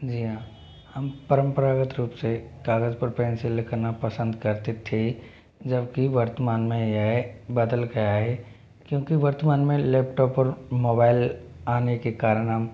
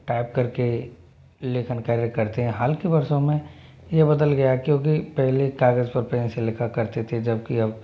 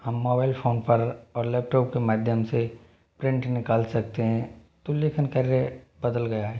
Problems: low volume